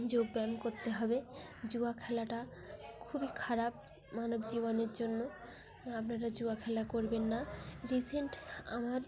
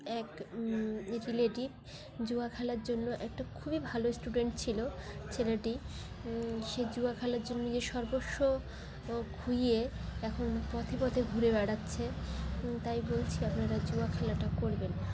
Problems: constant background noise, continuous background conversations